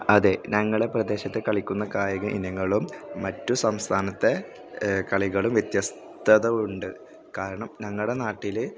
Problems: background sounds at intervals, background conversations at intervals